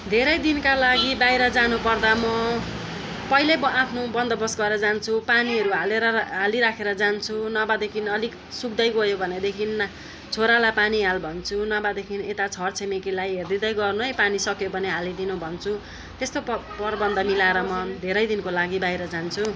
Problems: constant background noise